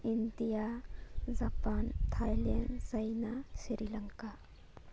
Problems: background sounds at intervals